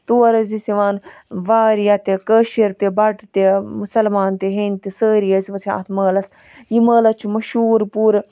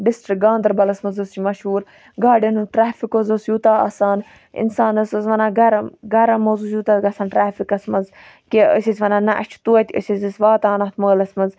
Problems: none marked